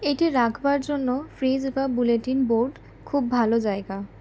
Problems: none marked